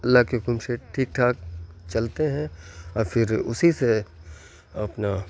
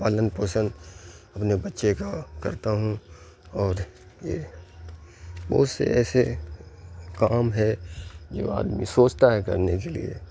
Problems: constant background noise